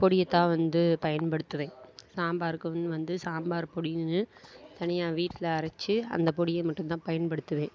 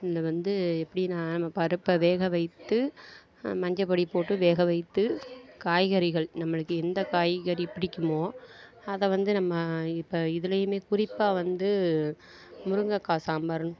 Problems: background conversations at intervals